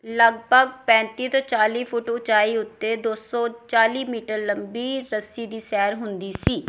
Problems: background sounds at intervals